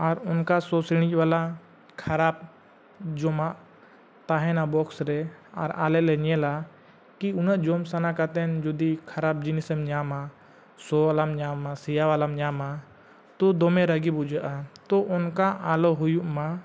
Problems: none marked